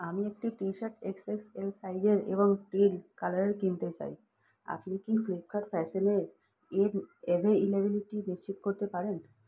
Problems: low volume